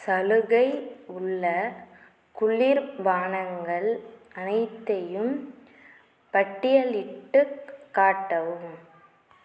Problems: none marked